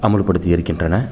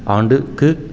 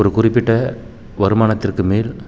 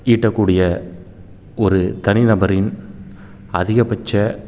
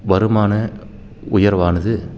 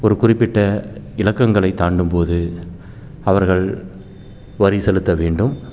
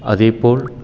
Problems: background sounds at intervals